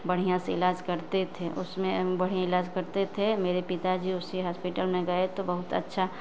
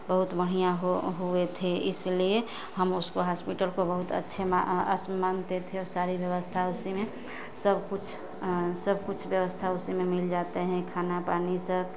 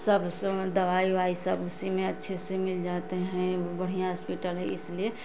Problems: constant background noise